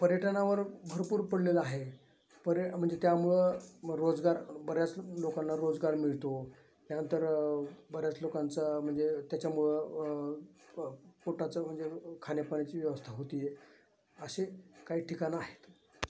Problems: none marked